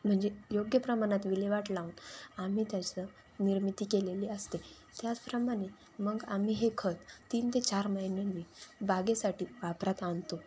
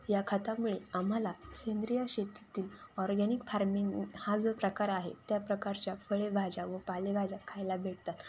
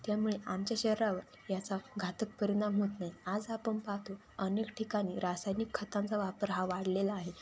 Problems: constant background noise